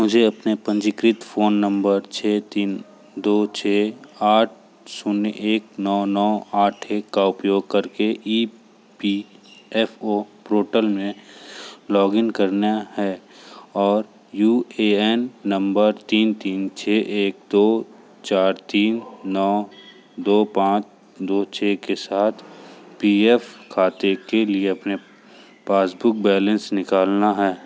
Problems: none marked